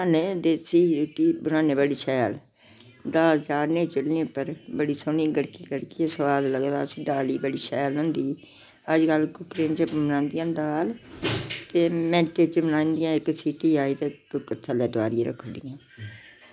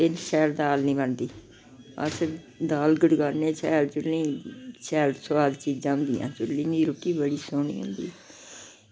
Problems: background sounds at intervals